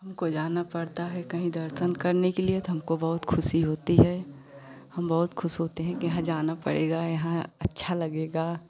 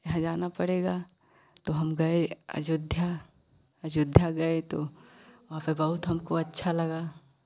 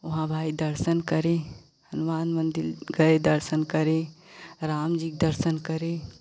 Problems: constant background noise